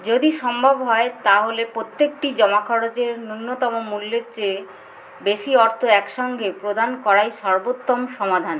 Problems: constant background noise